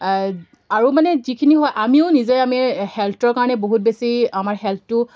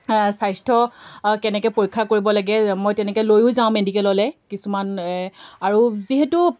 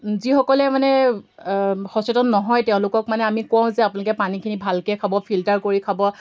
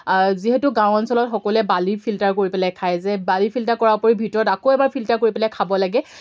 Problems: background sounds at intervals